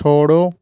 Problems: constant background noise